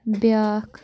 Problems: background sounds at intervals